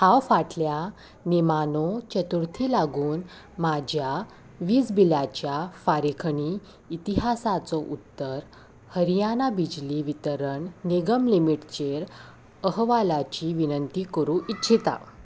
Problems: background sounds at intervals